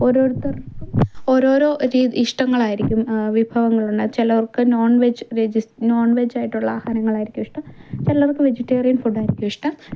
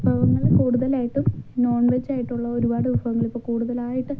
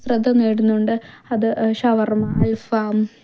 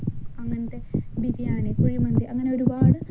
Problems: background sounds at intervals, low volume